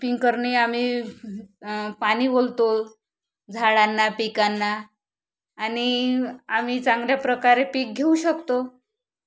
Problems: background sounds at intervals